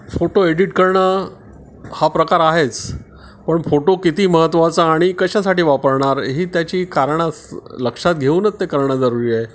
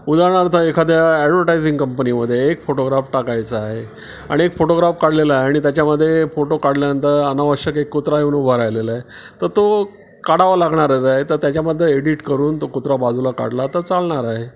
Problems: background sounds at intervals